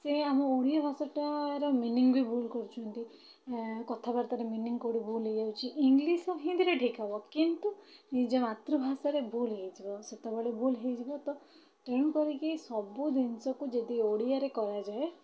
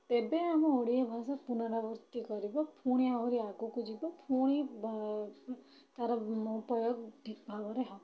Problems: none marked